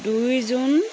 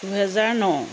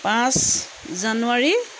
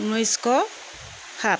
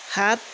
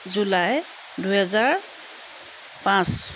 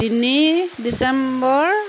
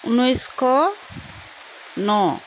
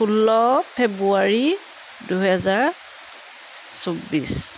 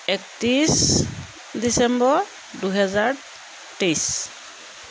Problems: constant background noise